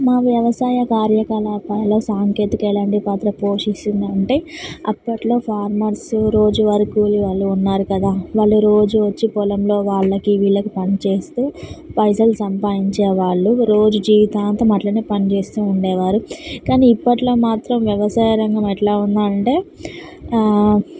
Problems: none marked